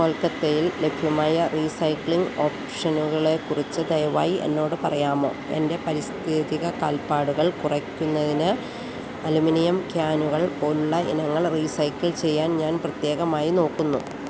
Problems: constant background noise